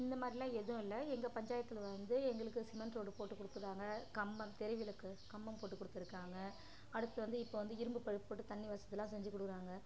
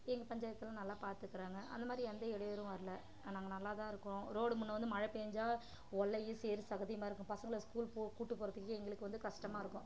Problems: constant background noise, background conversations at intervals, low volume